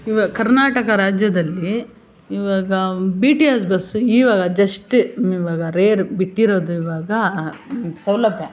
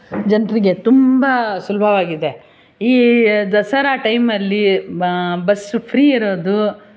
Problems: none marked